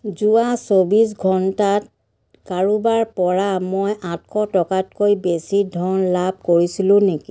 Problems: background conversations at intervals